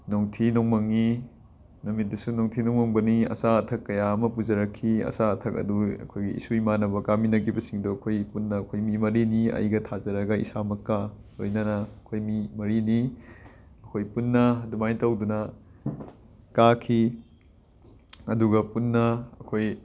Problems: constant background noise